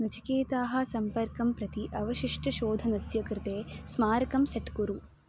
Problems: none marked